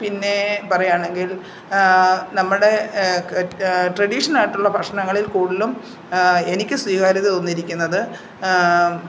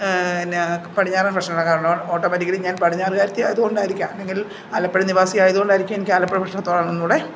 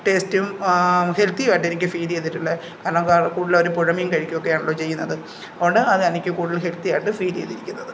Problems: background sounds at intervals